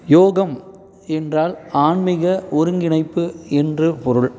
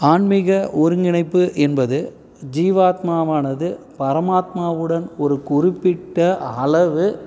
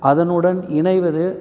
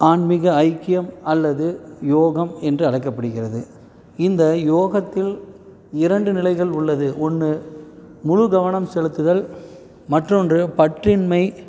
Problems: background sounds at intervals